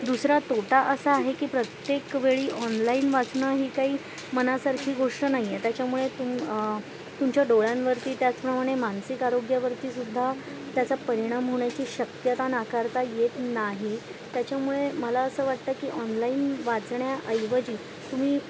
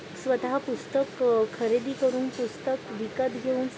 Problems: constant background noise